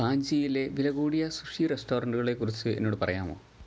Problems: low volume